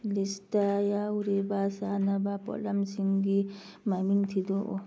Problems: none marked